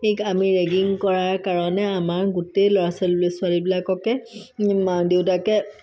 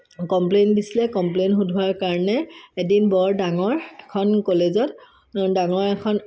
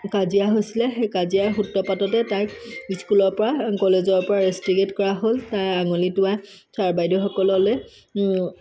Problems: none marked